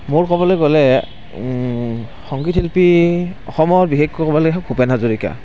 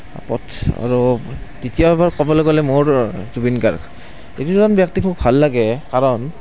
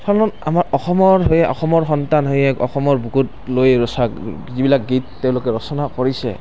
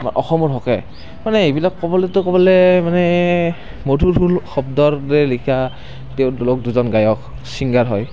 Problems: constant background noise